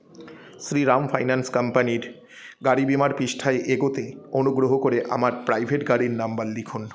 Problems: continuous background conversations